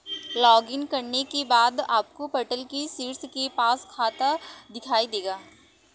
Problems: background sounds at intervals